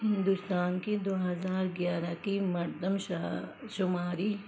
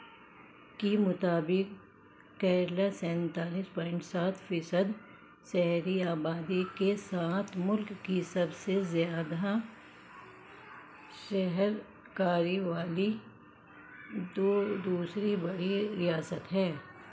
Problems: background sounds at intervals, low volume